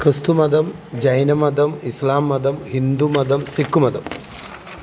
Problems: background sounds at intervals